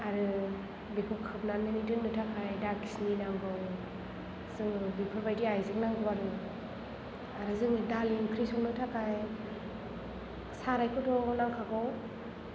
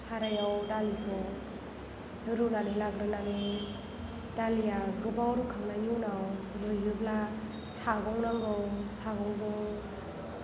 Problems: low volume